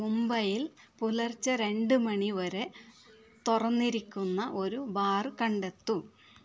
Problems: background sounds at intervals, low volume